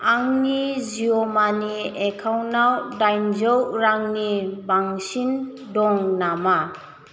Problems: constant background noise